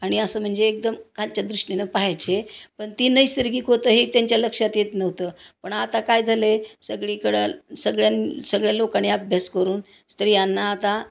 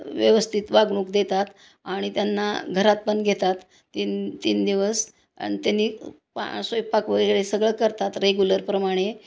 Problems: none marked